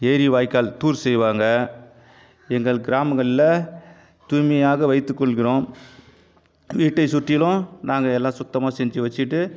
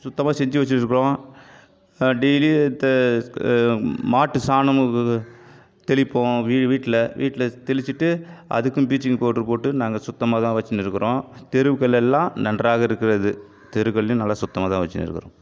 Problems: none marked